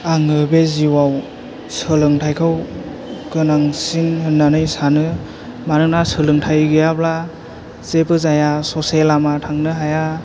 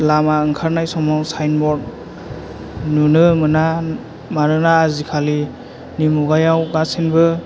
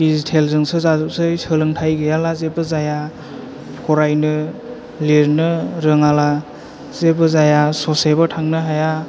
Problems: none marked